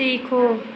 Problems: constant background noise